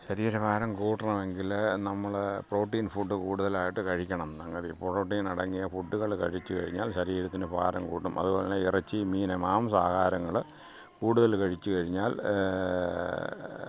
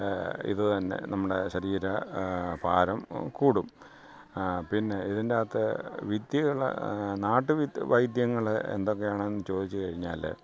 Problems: background sounds at intervals